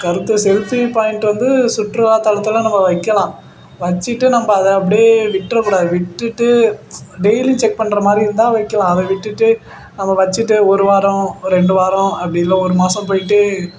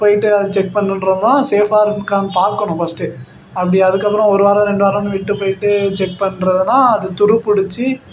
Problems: constant background noise